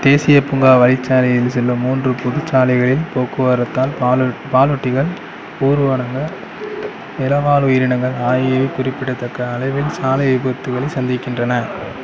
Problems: background sounds at intervals